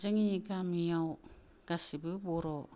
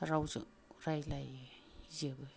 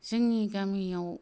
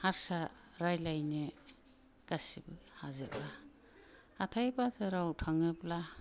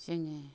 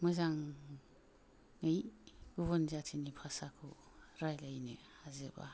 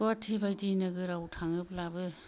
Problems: low volume